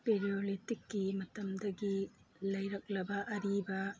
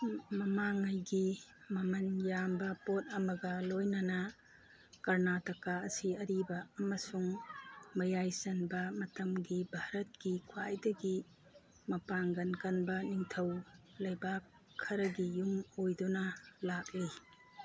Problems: background sounds at intervals, background conversations at intervals